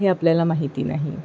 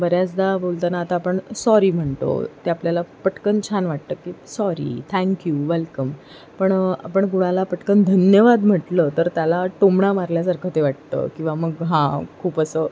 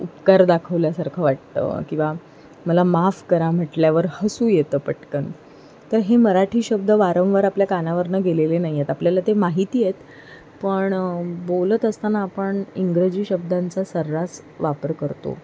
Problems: none marked